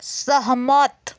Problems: background sounds at intervals